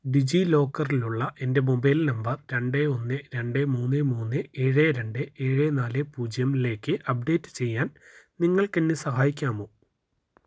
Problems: low volume